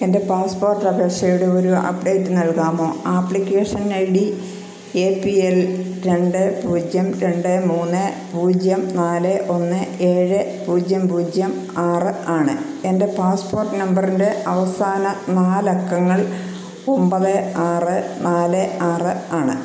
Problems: constant background noise